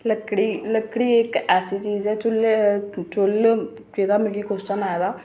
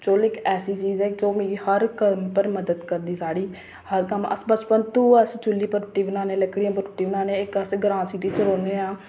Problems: constant background noise